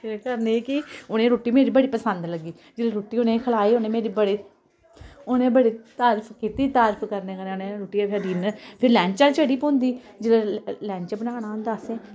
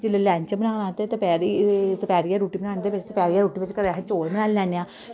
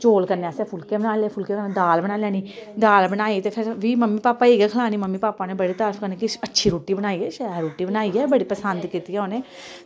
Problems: constant background noise